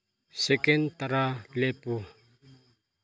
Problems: low volume